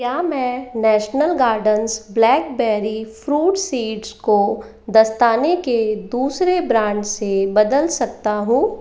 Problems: none marked